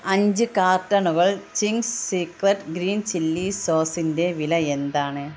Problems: constant background noise